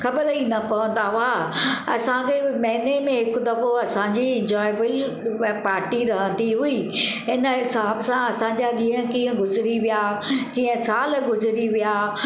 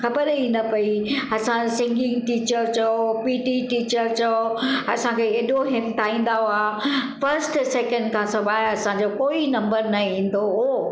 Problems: constant background noise, echo